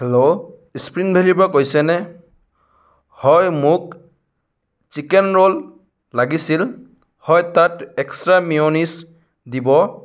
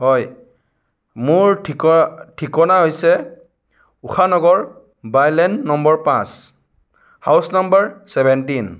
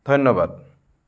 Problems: none marked